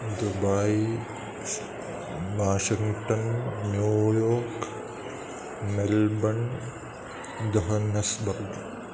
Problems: constant background noise